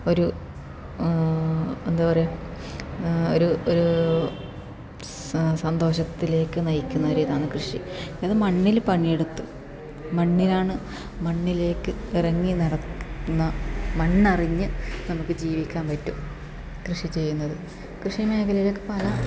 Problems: constant background noise, low volume